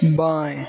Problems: none marked